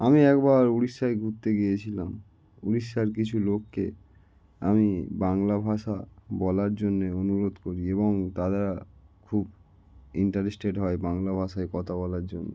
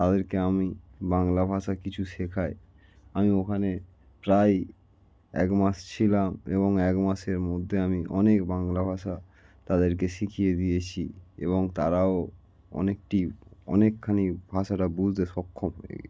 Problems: none marked